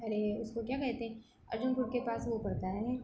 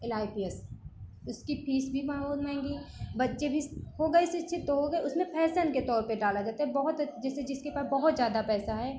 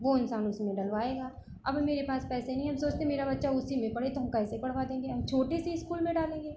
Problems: background sounds at intervals